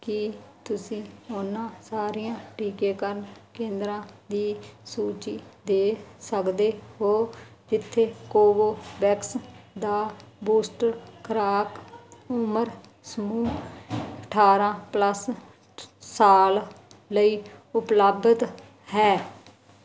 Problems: background sounds at intervals